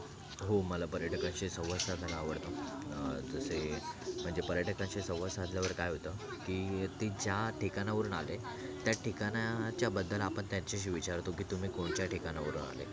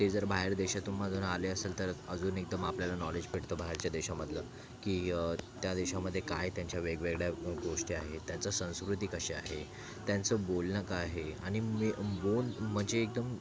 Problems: constant background noise